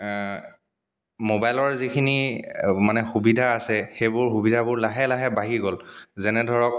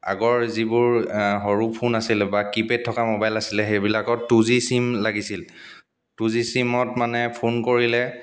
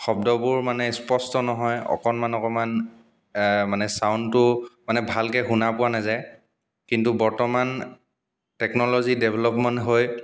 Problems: background sounds at intervals